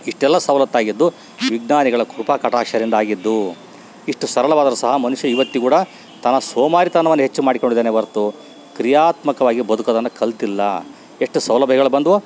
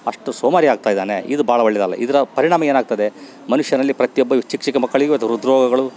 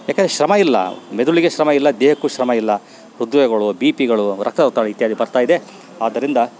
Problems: background sounds at intervals